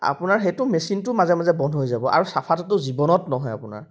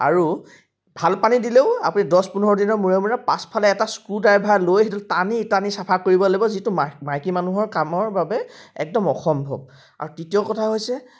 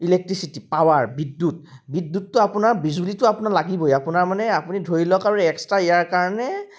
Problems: none marked